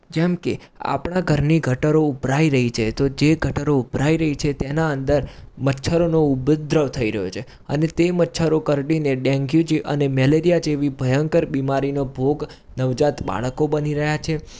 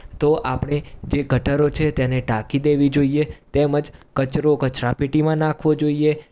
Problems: background sounds at intervals